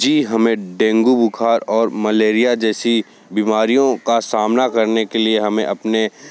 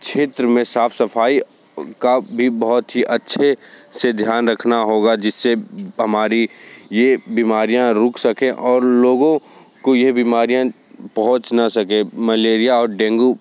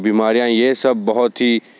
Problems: constant background noise